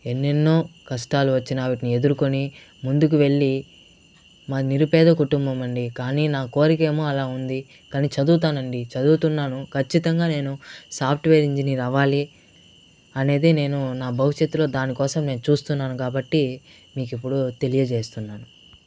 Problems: constant background noise